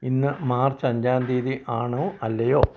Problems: low volume